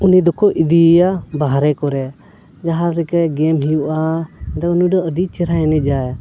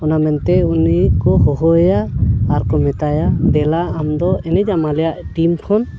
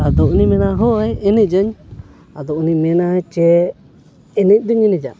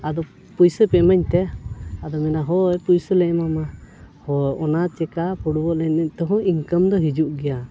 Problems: background sounds at intervals